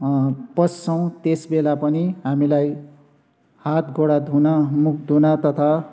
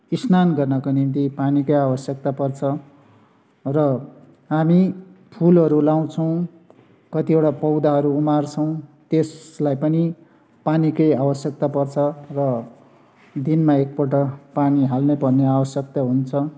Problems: constant background noise